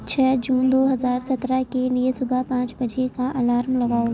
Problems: constant background noise, low volume